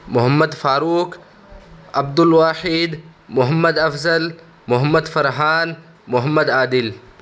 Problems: constant background noise